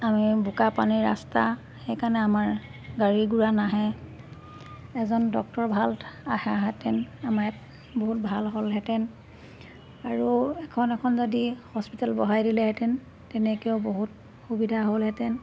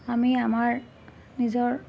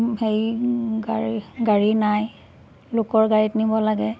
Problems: background sounds at intervals